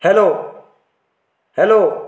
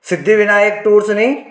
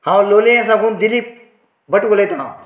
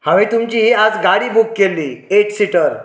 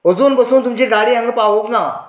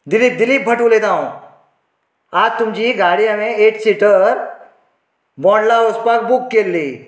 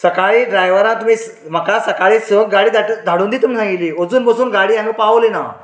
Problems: none marked